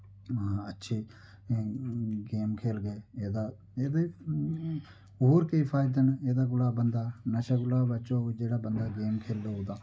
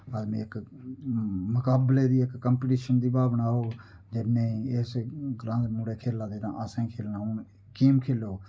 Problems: none marked